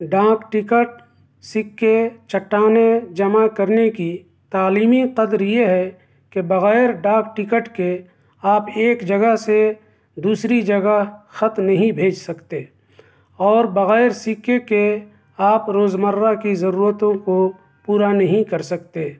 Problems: none marked